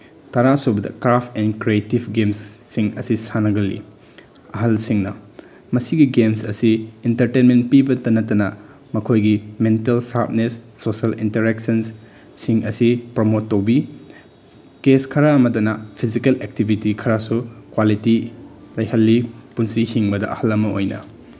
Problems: none marked